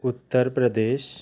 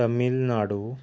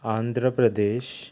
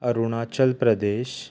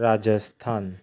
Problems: background sounds at intervals